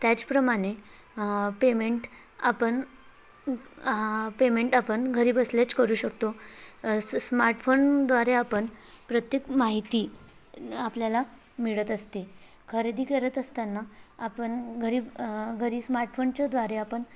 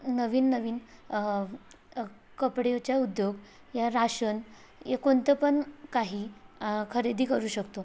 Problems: none marked